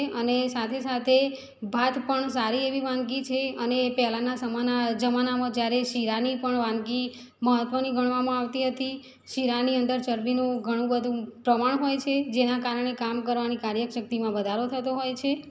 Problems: background sounds at intervals